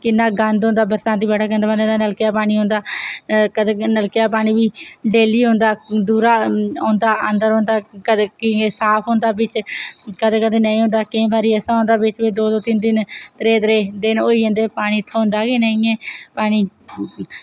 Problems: none marked